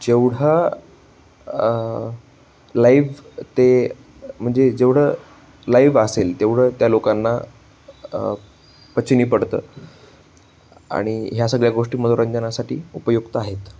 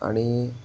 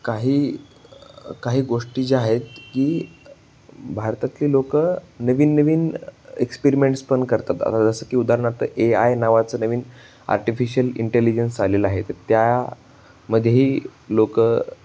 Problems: constant background noise